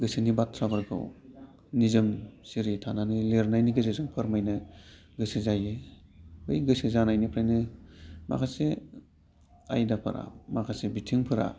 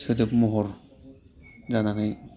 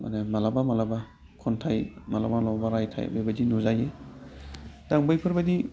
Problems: constant background noise